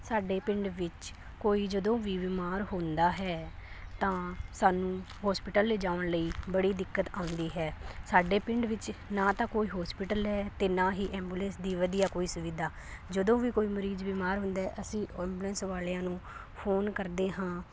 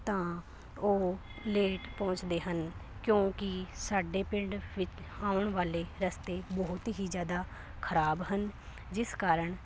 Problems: none marked